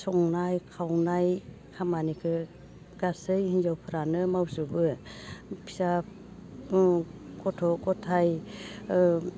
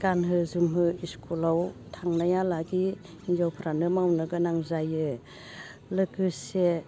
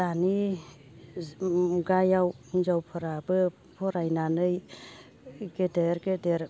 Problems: constant background noise